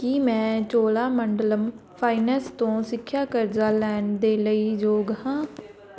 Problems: background sounds at intervals, background conversations at intervals